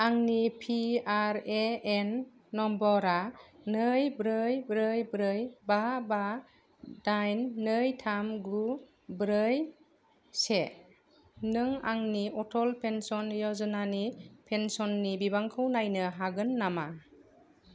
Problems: none marked